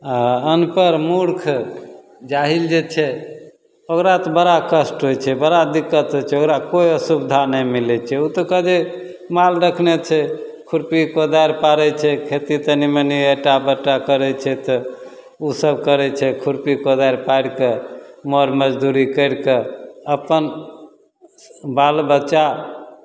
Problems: none marked